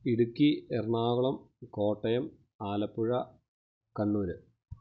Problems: none marked